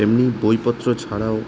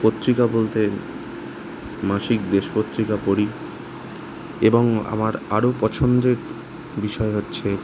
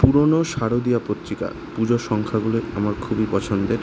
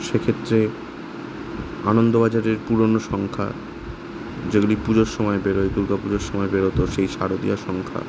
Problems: constant background noise